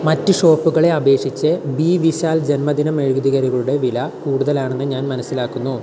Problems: constant background noise